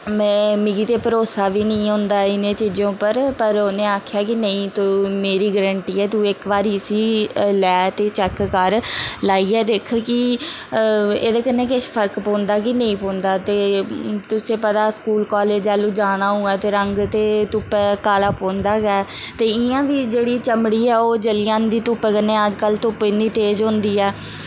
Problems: constant background noise